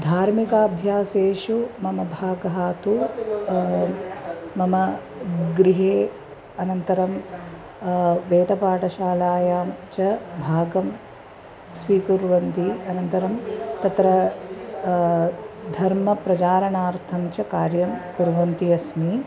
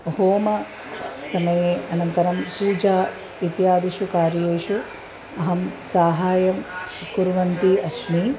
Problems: constant background noise, continuous background conversations